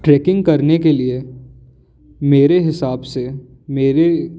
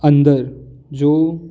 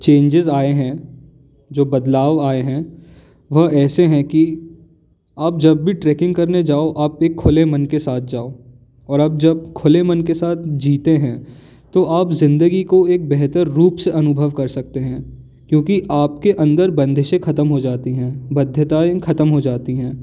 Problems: background sounds at intervals